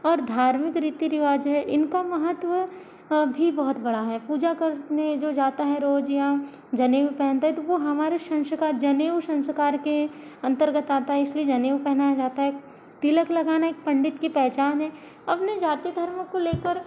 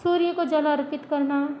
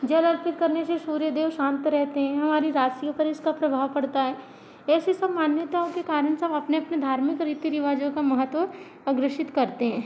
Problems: constant background noise